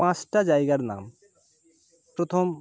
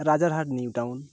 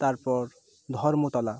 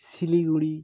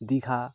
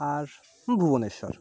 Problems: constant background noise